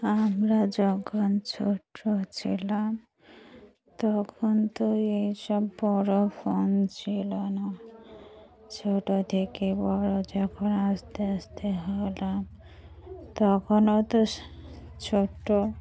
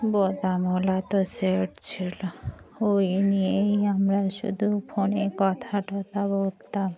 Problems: none marked